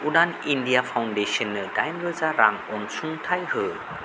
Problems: constant background noise